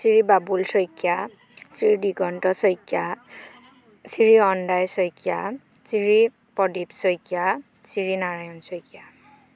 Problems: background sounds at intervals, background conversations at intervals